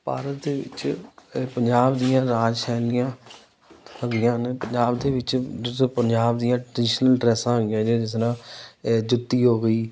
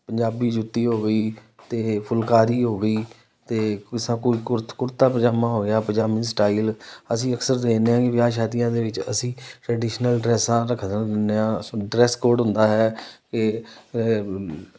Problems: none marked